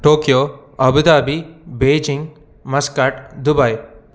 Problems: none marked